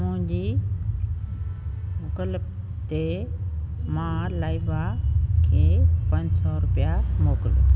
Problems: constant background noise, low volume